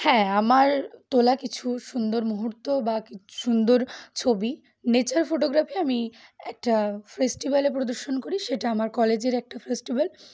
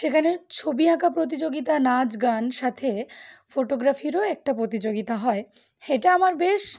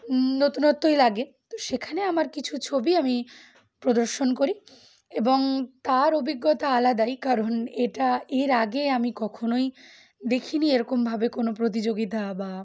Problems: background sounds at intervals